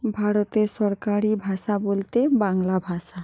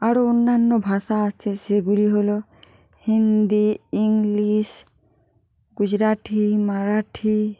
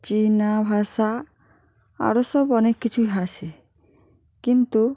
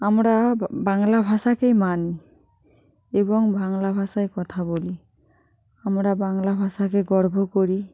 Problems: none marked